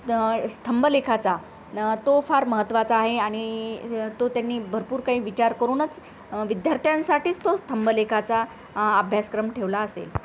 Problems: constant background noise